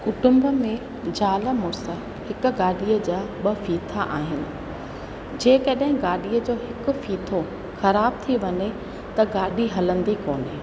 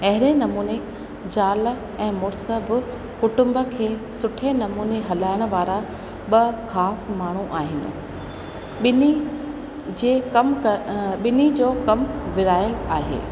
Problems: constant background noise, echo